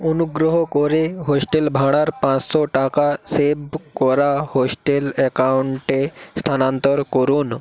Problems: constant background noise, background conversations at intervals